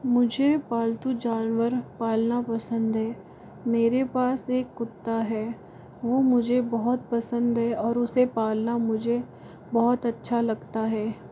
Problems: constant background noise